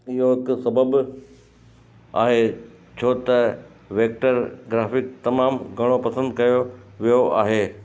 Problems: constant background noise